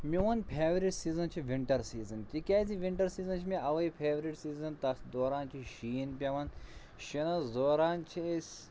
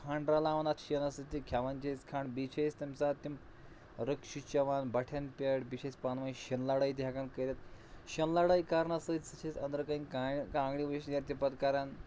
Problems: none marked